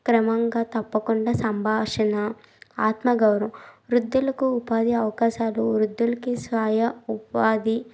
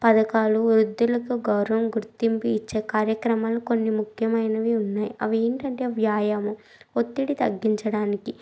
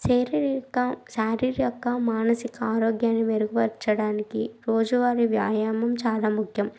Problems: background sounds at intervals